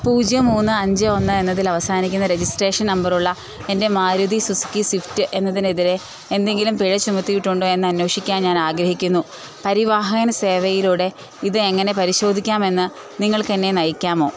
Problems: constant background noise